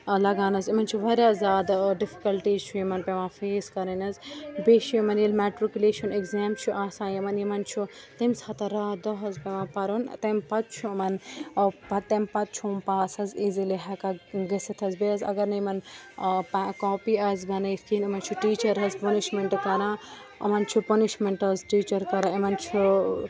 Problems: background sounds at intervals, continuous background conversations